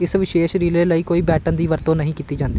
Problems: background sounds at intervals